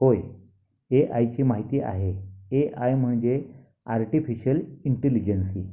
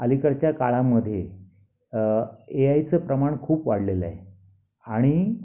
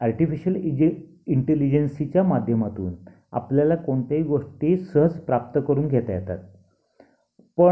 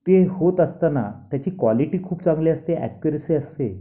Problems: none marked